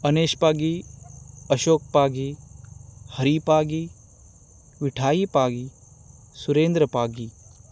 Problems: none marked